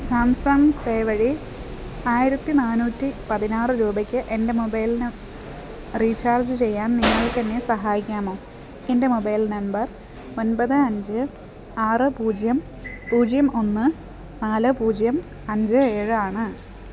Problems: background sounds at intervals